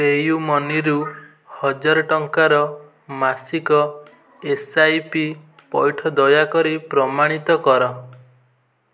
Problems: background conversations at intervals